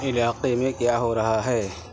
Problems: constant background noise